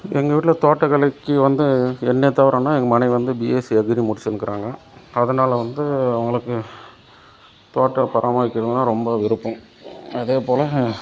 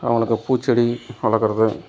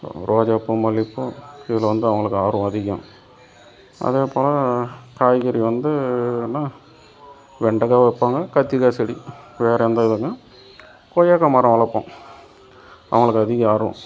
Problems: none marked